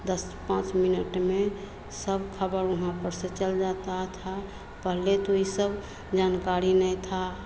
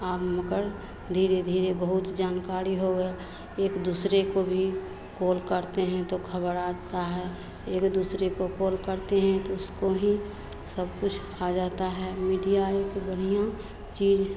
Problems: none marked